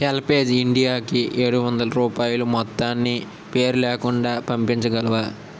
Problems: constant background noise